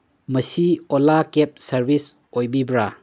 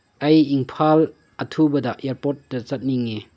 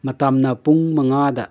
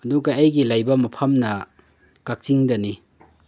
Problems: none marked